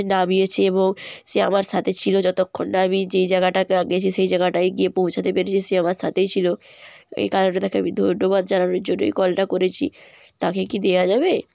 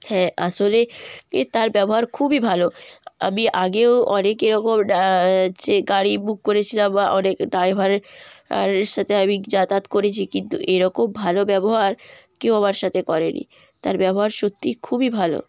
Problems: none marked